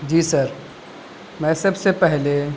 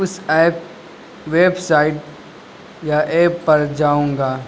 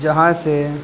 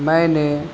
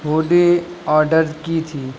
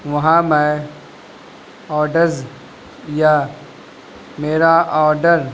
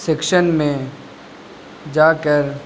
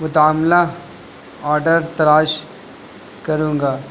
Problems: constant background noise